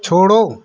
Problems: none marked